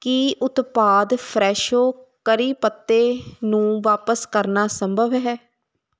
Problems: constant background noise